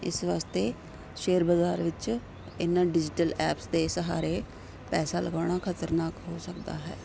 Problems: none marked